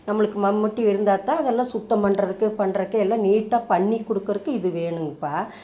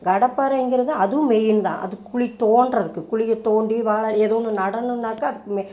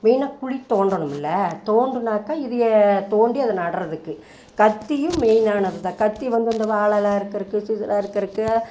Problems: background sounds at intervals